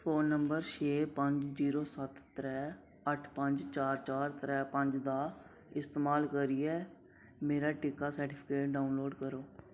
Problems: none marked